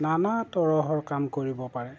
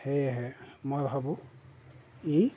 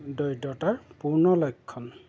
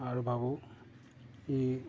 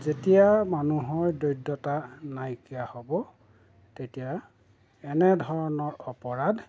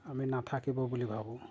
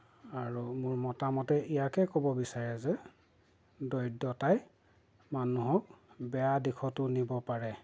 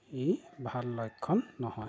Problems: background sounds at intervals